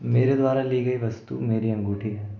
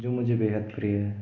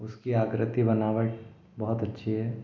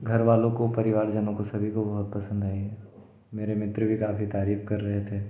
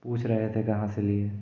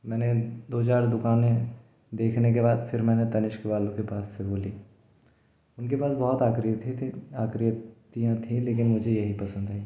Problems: background sounds at intervals